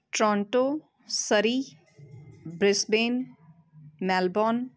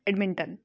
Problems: constant background noise